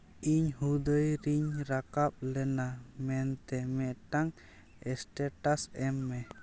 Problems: background sounds at intervals